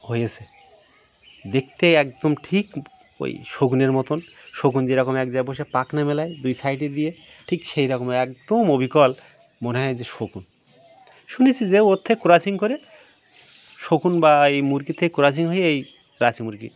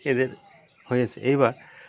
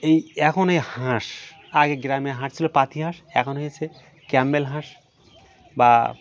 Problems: constant background noise, continuous background conversations